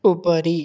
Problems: none marked